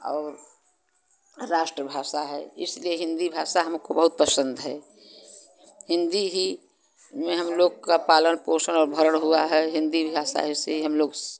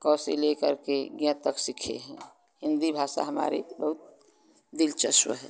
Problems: constant background noise